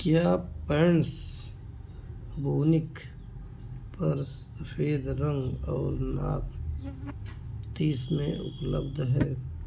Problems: none marked